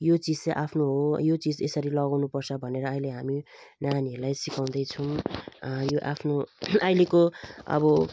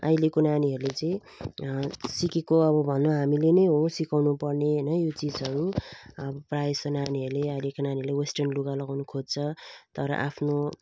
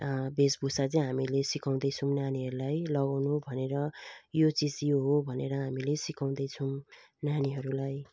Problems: background sounds at intervals